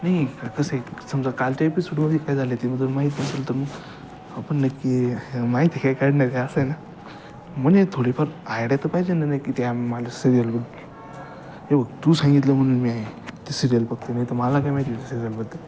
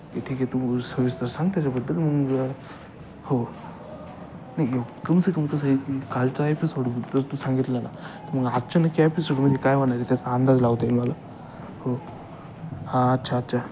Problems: constant background noise, continuous background conversations